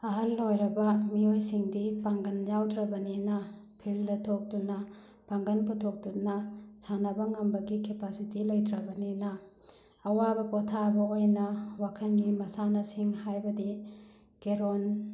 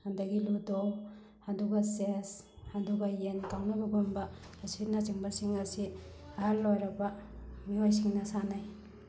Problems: none marked